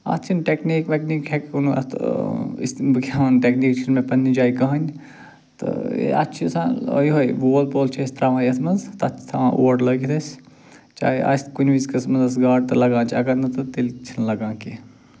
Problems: none marked